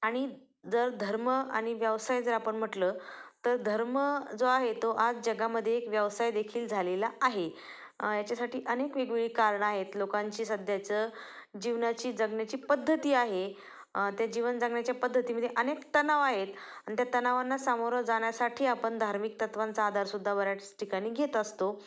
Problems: constant background noise, background conversations at intervals